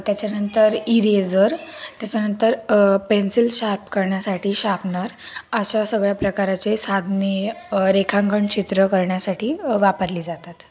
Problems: none marked